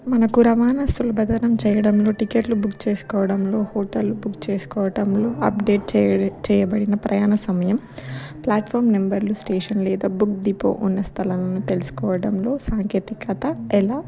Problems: background sounds at intervals